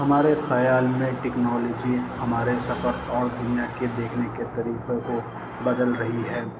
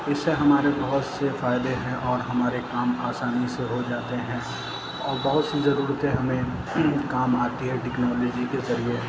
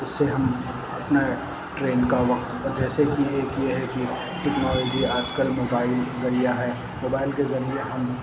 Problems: constant background noise, low volume